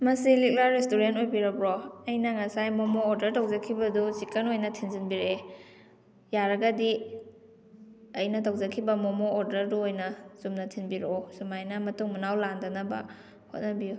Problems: none marked